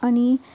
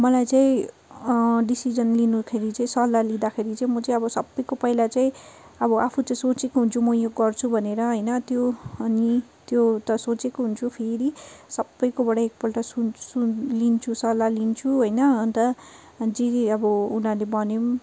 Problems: constant background noise